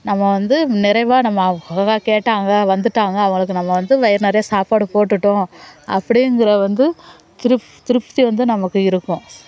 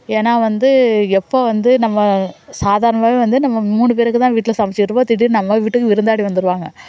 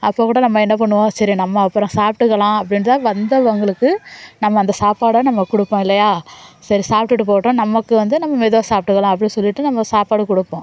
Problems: background sounds at intervals, background conversations at intervals